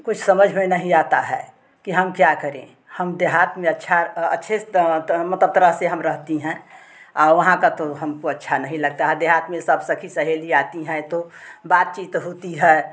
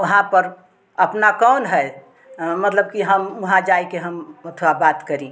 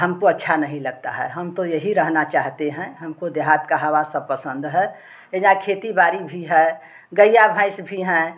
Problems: constant background noise, background conversations at intervals